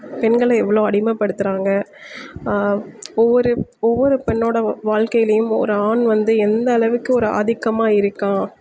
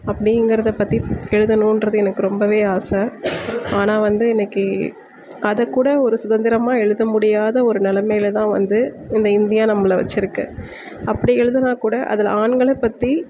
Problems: background sounds at intervals